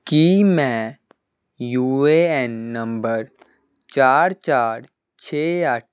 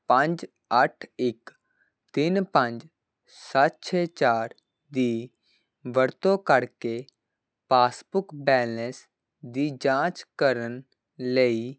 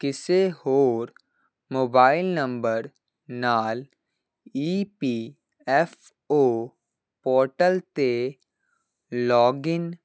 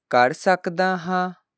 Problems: none marked